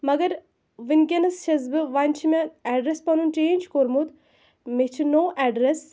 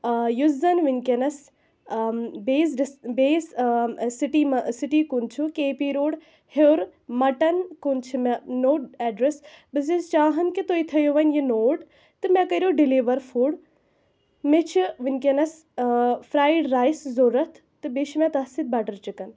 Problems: constant background noise